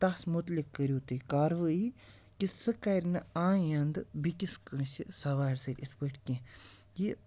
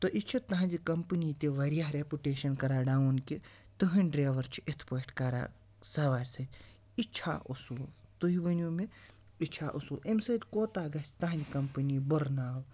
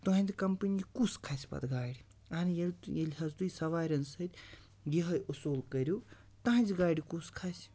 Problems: constant background noise